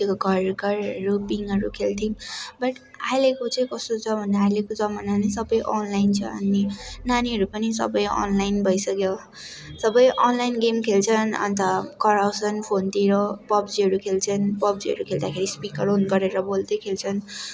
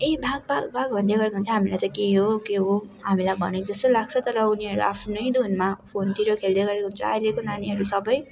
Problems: continuous background conversations